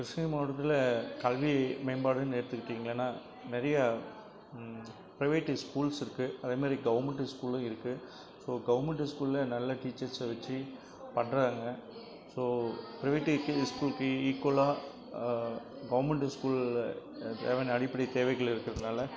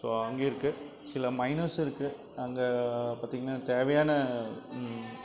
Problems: constant background noise, background conversations at intervals